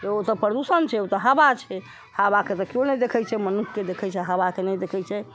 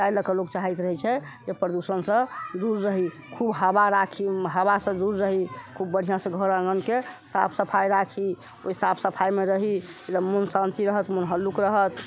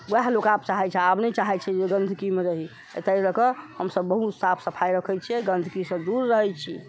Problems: constant background noise